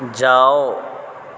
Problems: constant background noise